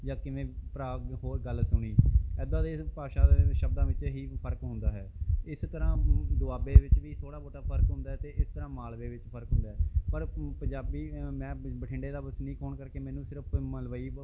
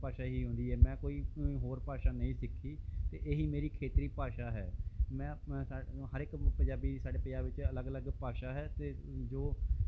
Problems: background sounds at intervals